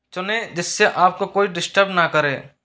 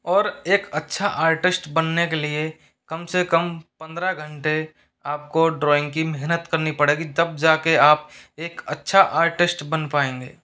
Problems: background sounds at intervals